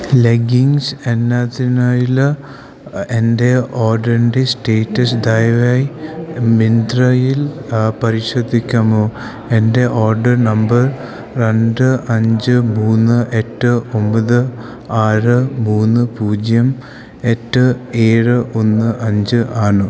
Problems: constant background noise